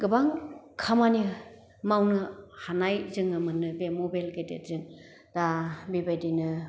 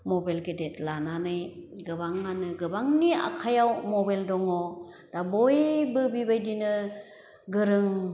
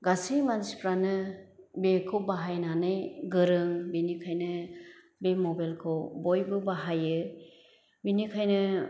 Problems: none marked